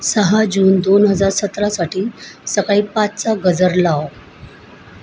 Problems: constant background noise